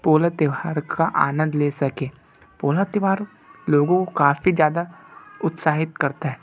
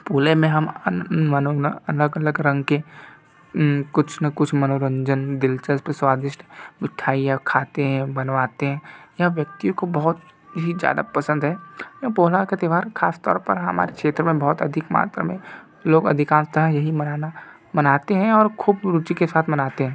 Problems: background sounds at intervals